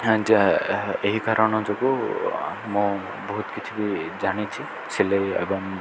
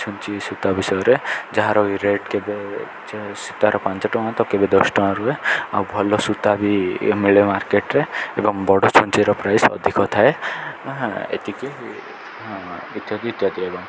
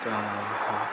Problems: constant background noise